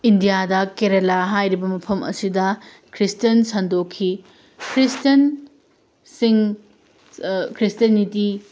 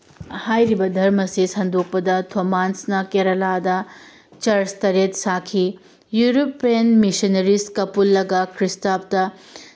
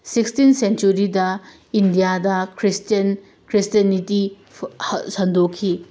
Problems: none marked